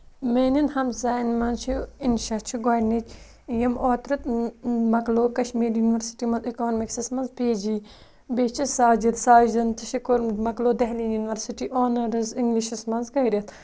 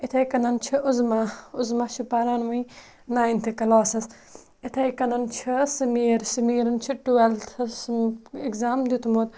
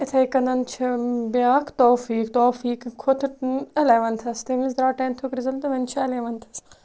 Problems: none marked